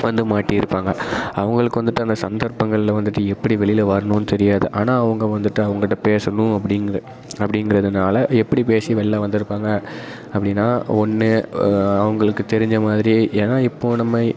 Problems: constant background noise